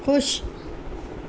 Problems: constant background noise